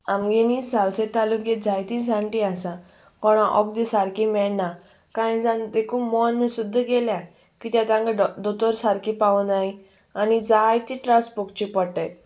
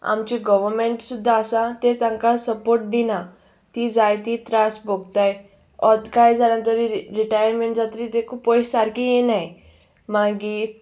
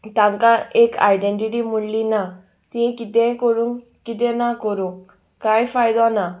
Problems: background sounds at intervals